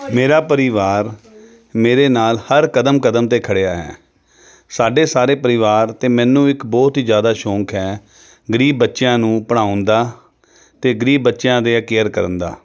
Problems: background sounds at intervals, background conversations at intervals